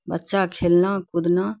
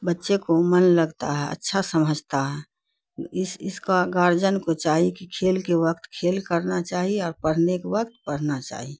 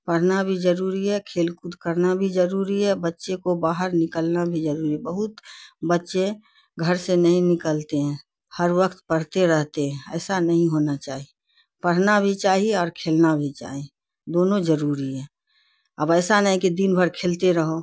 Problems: none marked